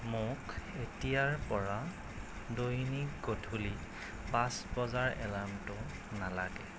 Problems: constant background noise